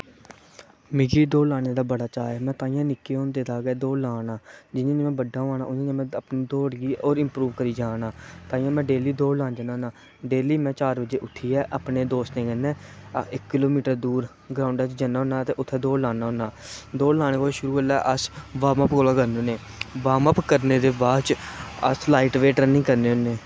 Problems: constant background noise